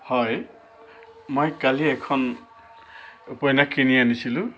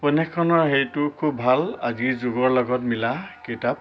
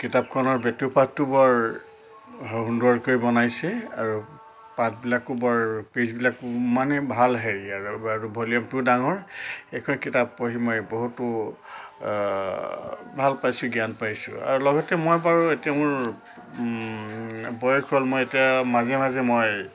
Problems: constant background noise